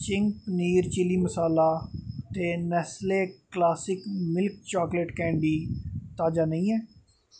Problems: none marked